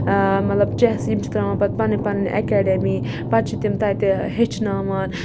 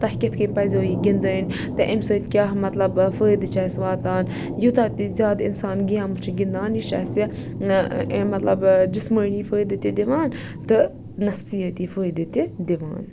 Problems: background sounds at intervals